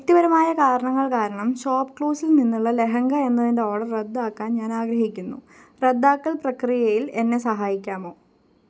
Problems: low volume